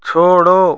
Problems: none marked